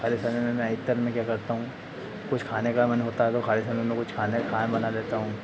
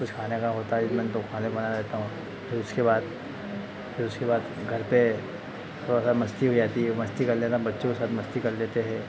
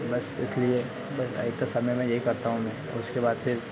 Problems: constant background noise